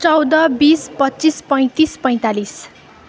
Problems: none marked